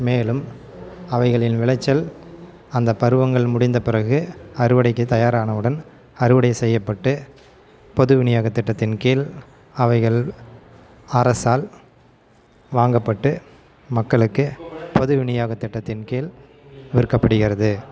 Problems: constant background noise